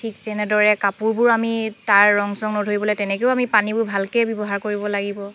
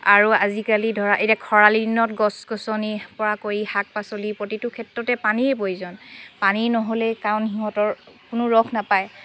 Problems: constant background noise, background conversations at intervals